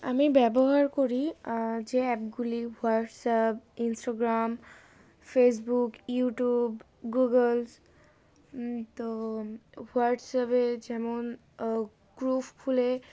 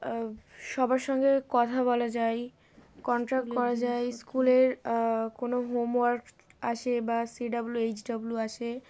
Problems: background sounds at intervals